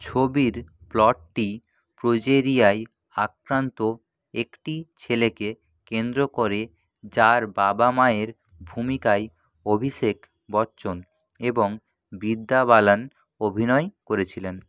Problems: none marked